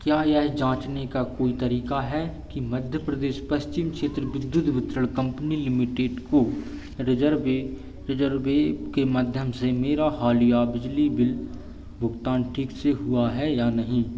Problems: constant background noise